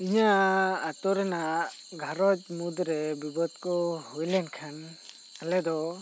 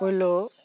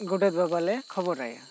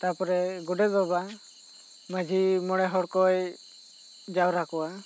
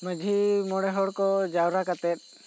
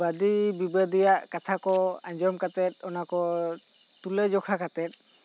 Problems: constant background noise